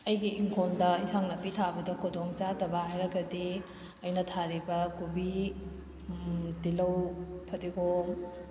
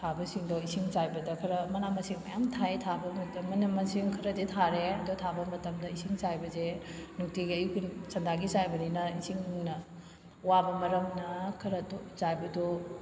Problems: background sounds at intervals